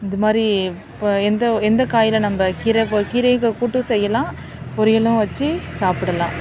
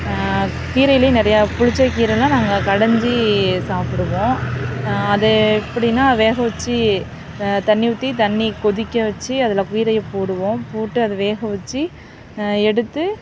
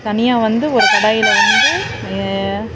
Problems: constant background noise